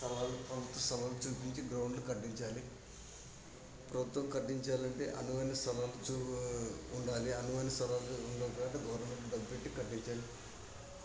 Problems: constant background noise, background conversations at intervals